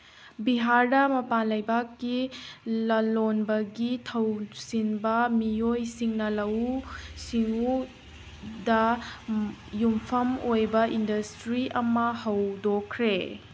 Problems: background sounds at intervals